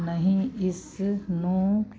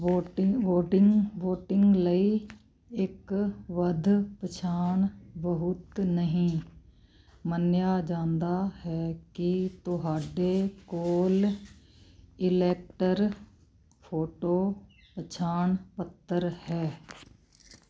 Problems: constant background noise